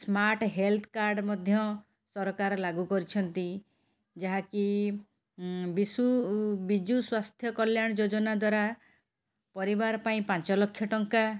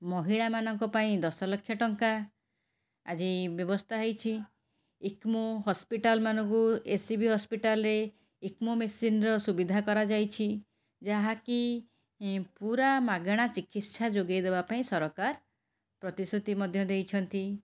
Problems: none marked